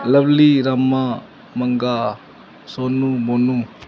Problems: none marked